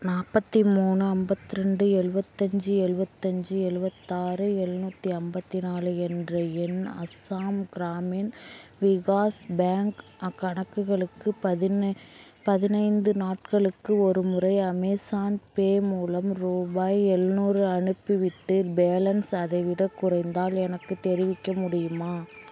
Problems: constant background noise